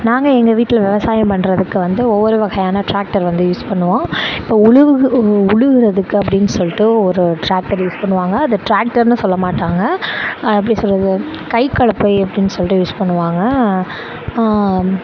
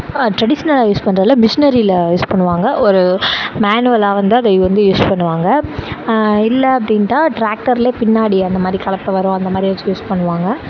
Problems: constant background noise, background conversations at intervals